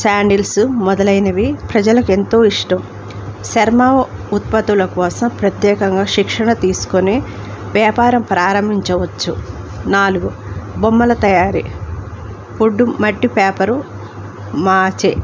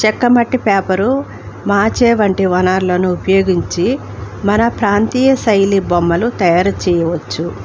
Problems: constant background noise